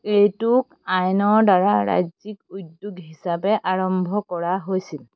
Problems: constant background noise